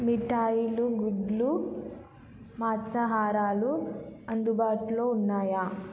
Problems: none marked